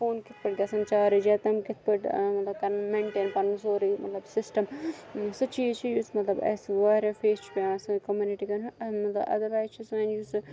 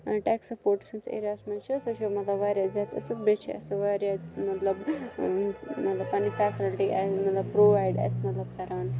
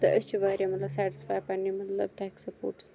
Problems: constant background noise, continuous background conversations